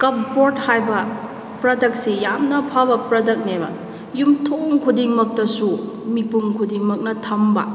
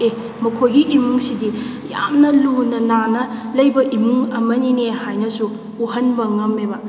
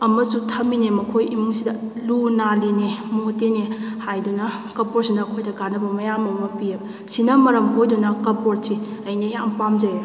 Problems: none marked